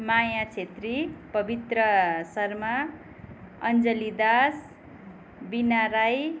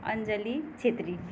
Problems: background sounds at intervals